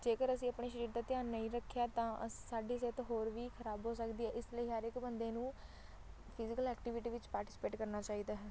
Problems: constant background noise